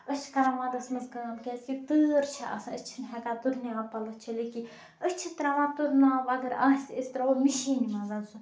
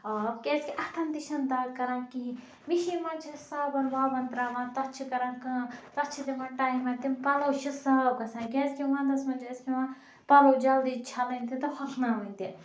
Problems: background sounds at intervals, background conversations at intervals